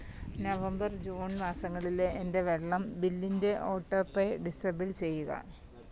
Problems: background sounds at intervals, low volume